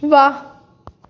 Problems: none marked